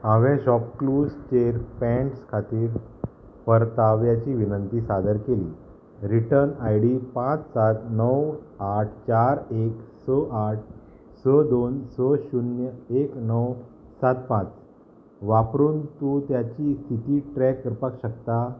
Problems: constant background noise